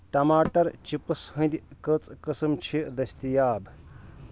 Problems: background sounds at intervals